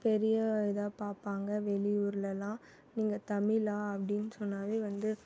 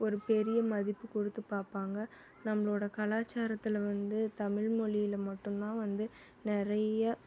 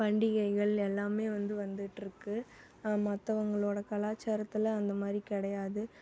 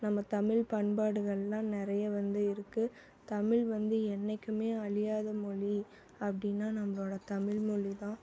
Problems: background conversations at intervals